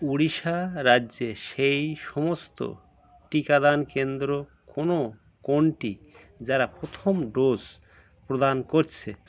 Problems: constant background noise, background conversations at intervals